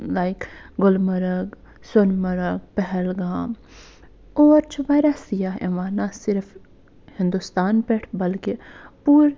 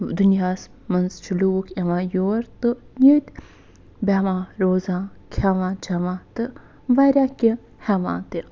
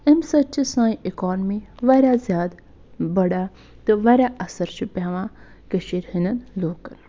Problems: none marked